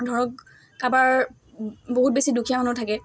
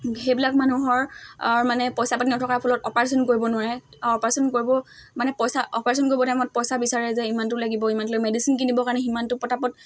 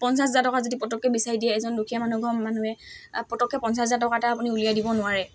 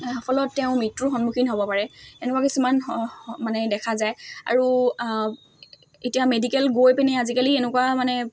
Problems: constant background noise, background conversations at intervals